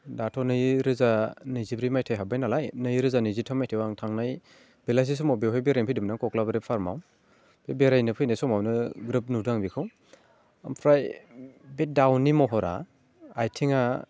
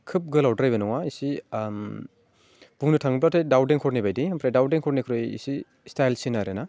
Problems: none marked